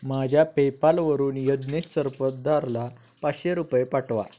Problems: constant background noise